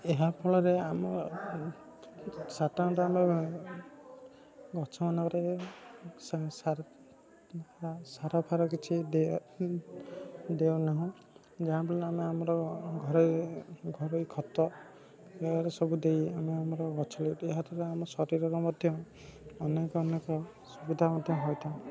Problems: constant background noise, continuous background conversations